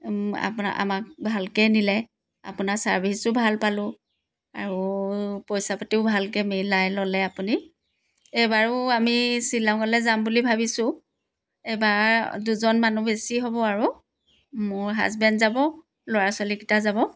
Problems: background sounds at intervals